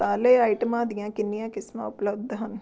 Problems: none marked